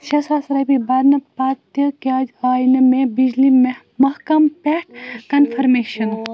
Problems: constant background noise